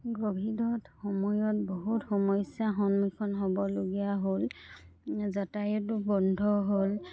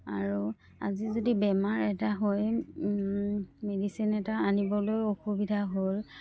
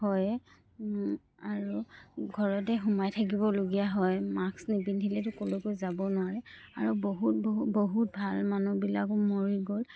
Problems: none marked